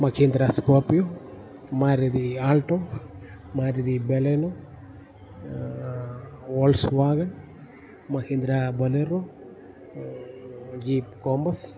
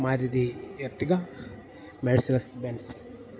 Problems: background sounds at intervals